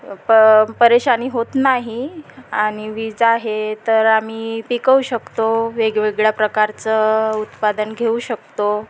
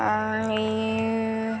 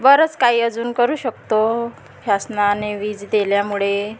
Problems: constant background noise, background conversations at intervals